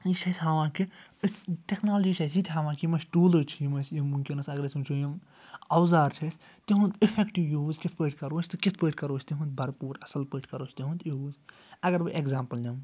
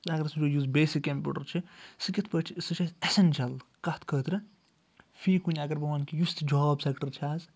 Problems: background sounds at intervals